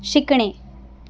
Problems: background sounds at intervals